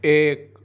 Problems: none marked